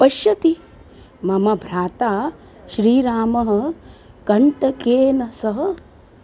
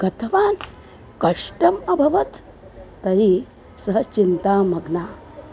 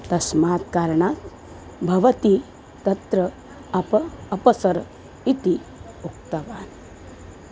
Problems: constant background noise